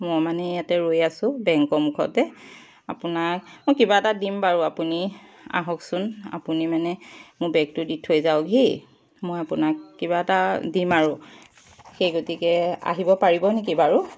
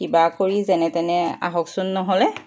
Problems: background sounds at intervals